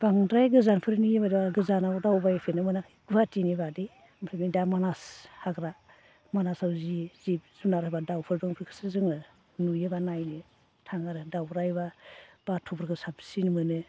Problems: constant background noise